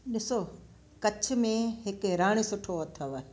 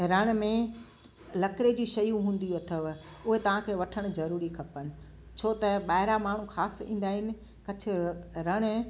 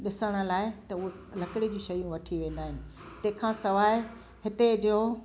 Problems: constant background noise, echo